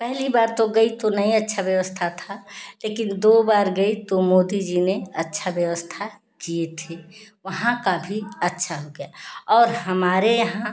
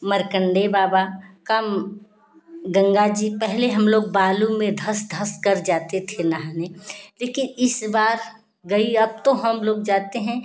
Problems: none marked